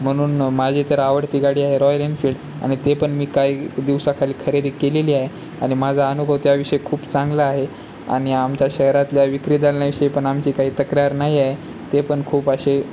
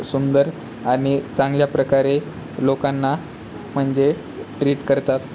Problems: none marked